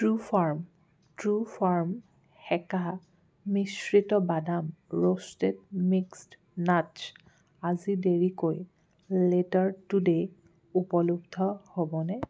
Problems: background sounds at intervals